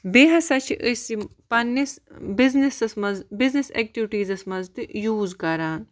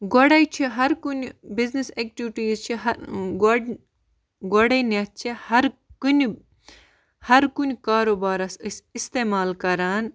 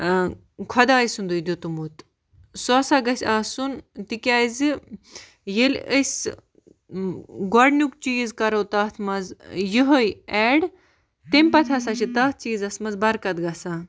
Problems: none marked